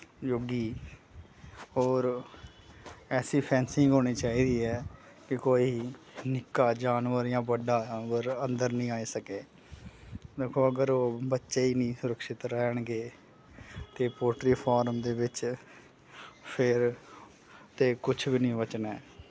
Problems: none marked